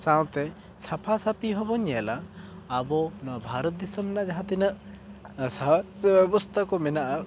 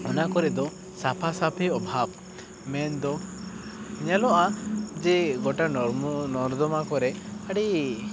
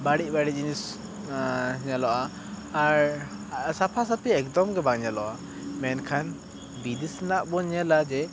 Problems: background sounds at intervals